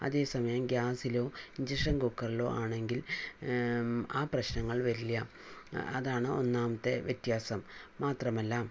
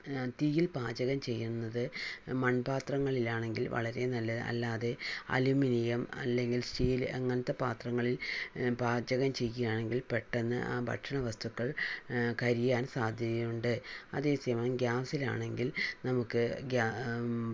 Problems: low volume